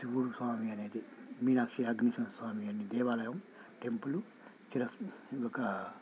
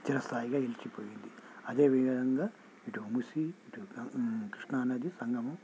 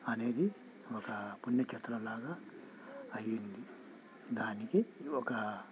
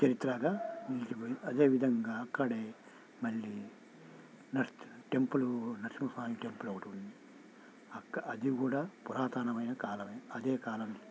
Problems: none marked